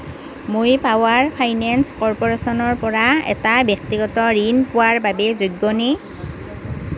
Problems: constant background noise